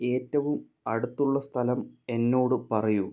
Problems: none marked